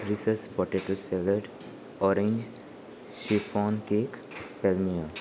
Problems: none marked